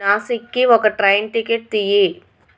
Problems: constant background noise